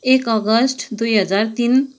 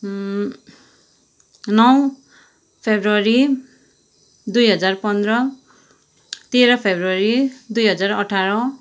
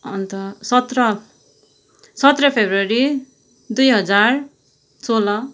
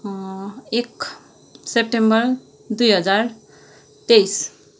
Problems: continuous background conversations